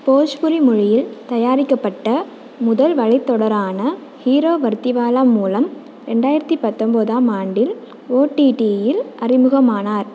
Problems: constant background noise